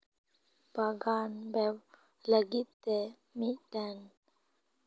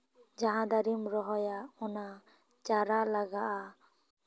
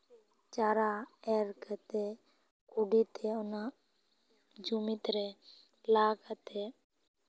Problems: none marked